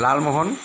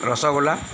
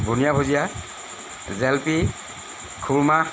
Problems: constant background noise